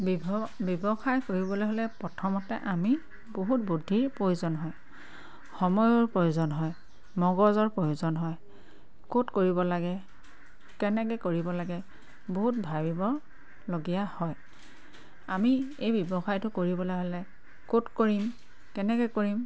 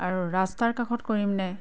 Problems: constant background noise